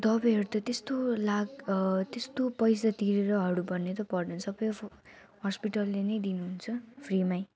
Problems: constant background noise